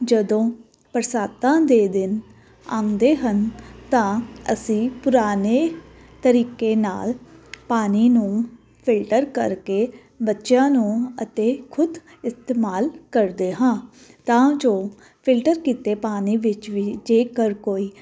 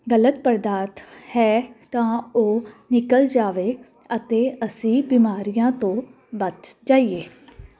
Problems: none marked